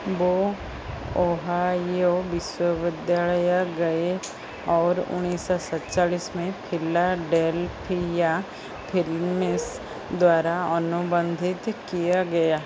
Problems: constant background noise